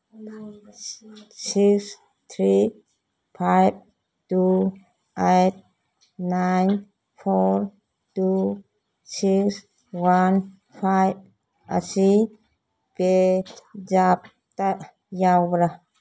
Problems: none marked